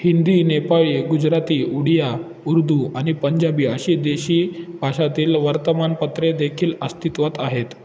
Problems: constant background noise